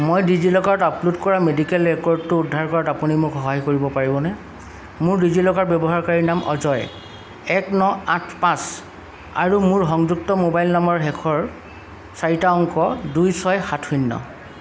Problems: none marked